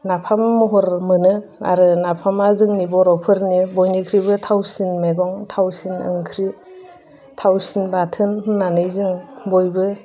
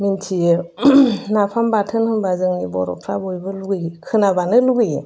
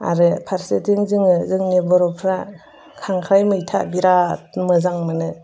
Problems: none marked